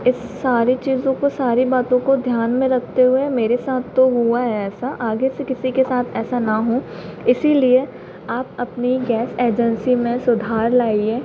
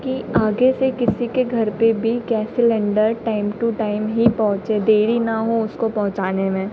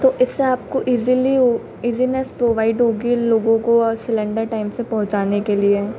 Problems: constant background noise